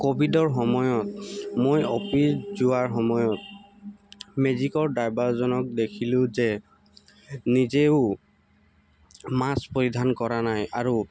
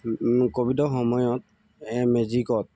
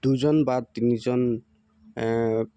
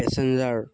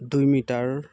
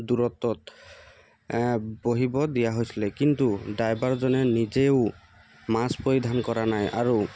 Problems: constant background noise, background conversations at intervals